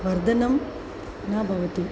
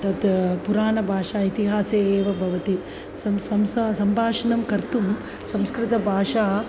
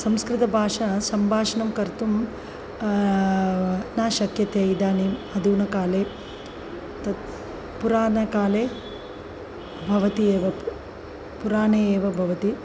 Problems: constant background noise